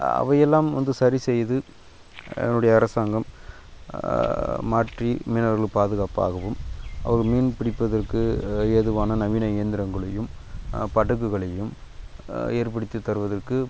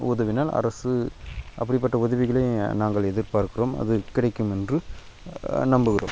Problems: background sounds at intervals